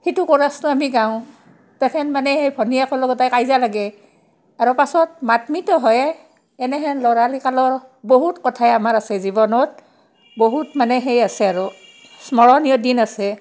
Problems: background sounds at intervals